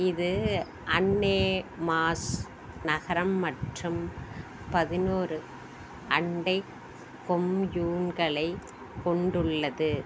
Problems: constant background noise